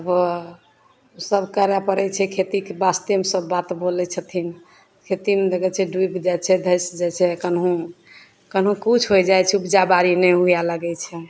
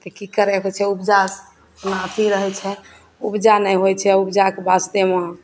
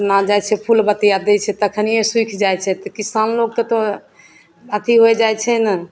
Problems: none marked